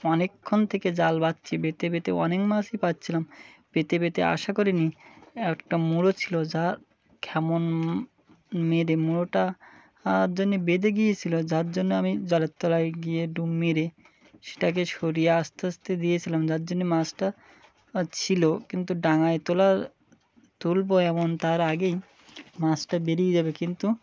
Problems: none marked